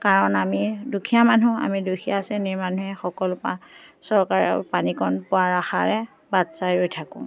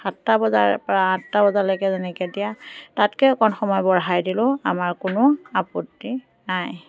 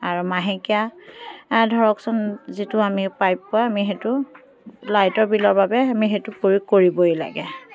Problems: background sounds at intervals, background conversations at intervals